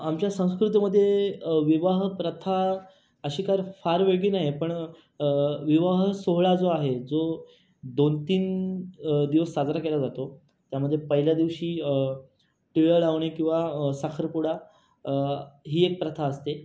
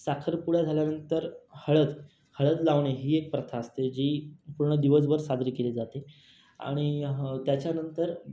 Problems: constant background noise, background conversations at intervals